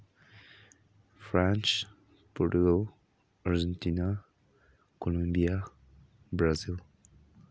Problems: low volume